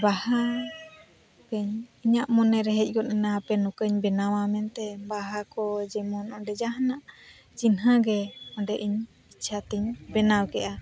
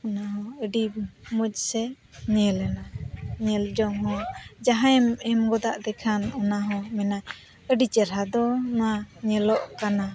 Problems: constant background noise, continuous background conversations